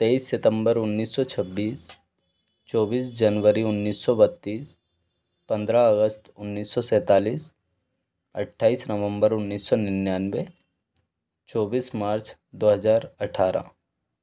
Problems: background sounds at intervals